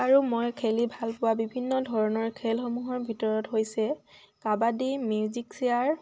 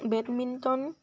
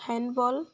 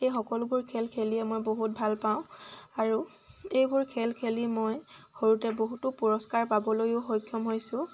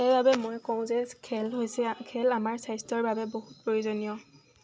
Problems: constant background noise